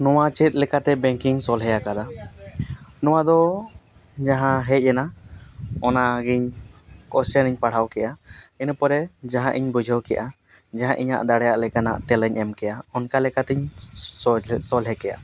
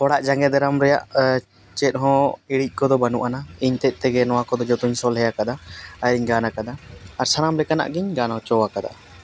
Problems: background sounds at intervals